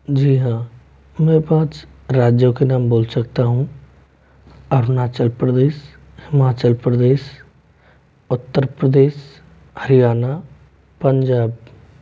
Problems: constant background noise